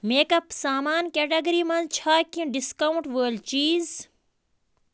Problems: constant background noise